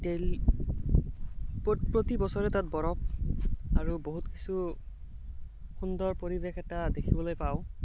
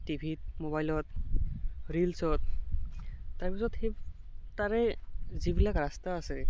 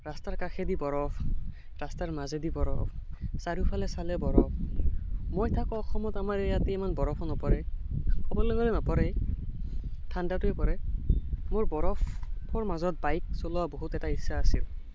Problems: constant background noise